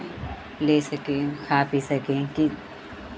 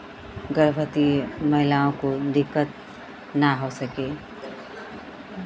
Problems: constant background noise, continuous background conversations